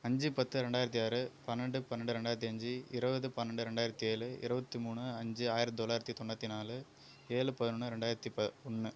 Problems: none marked